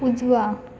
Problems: background sounds at intervals